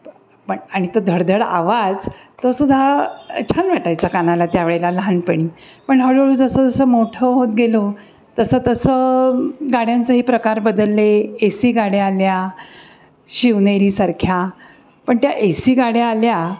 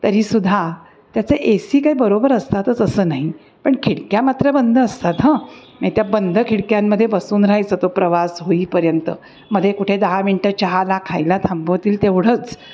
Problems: none marked